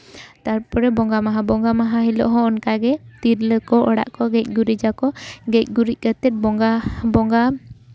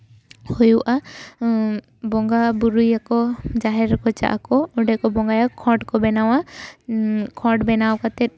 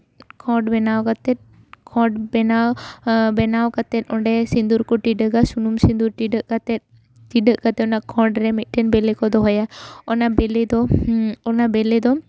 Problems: none marked